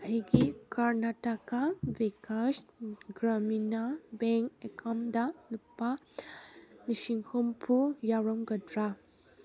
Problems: background sounds at intervals